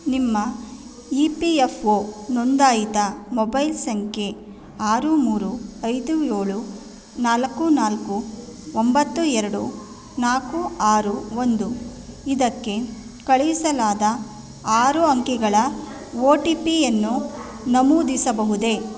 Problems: none marked